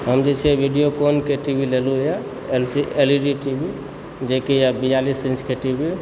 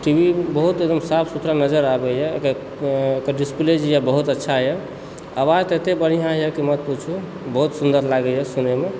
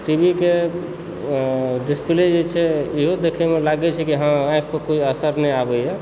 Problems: constant background noise